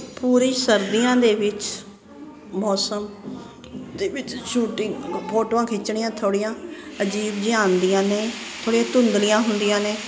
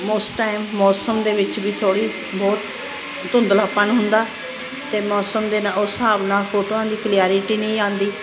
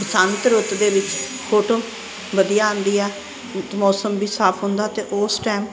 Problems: constant background noise